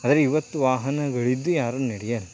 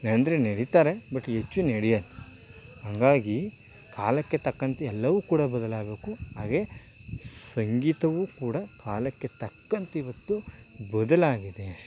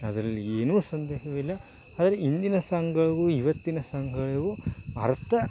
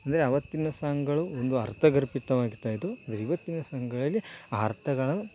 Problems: constant background noise